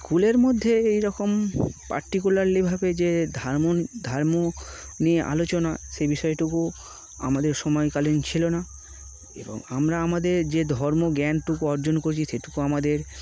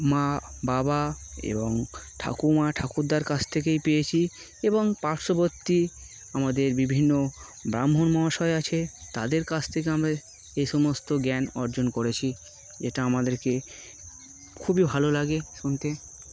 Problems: constant background noise